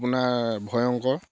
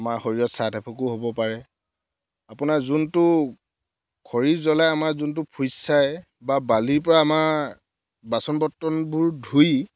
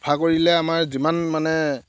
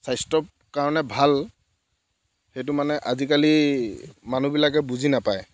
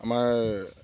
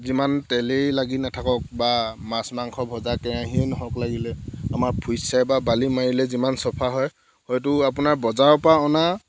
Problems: background sounds at intervals